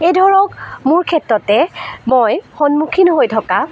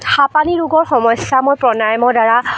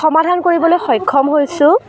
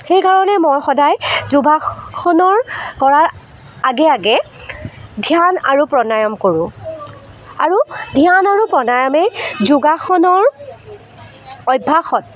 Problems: constant background noise